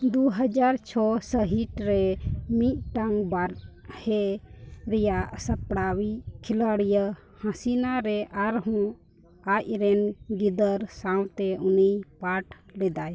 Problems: background sounds at intervals, continuous background conversations